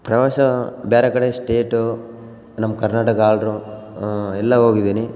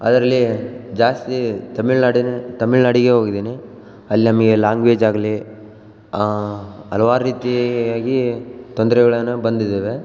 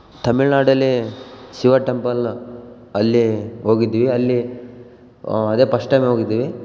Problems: background sounds at intervals